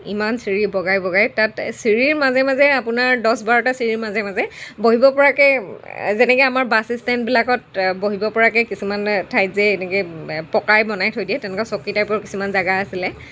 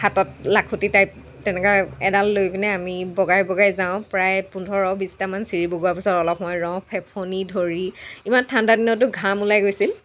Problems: none marked